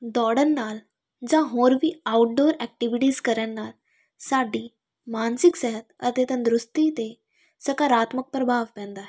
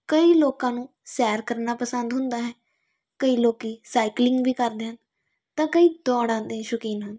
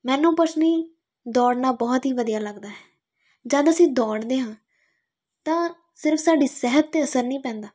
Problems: none marked